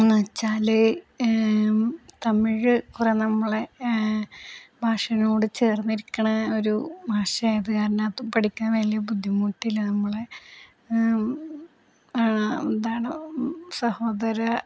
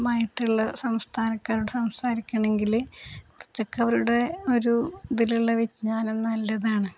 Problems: low volume